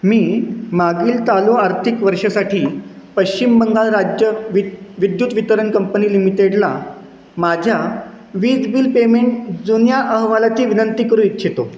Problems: constant background noise